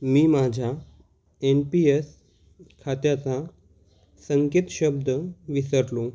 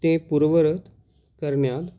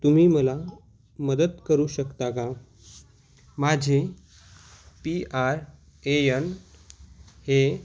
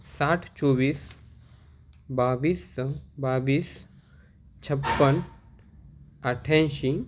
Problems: constant background noise